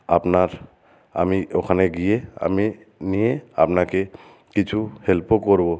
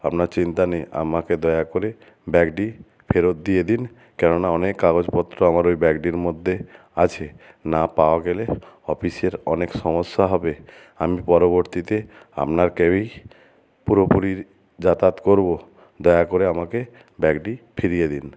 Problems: none marked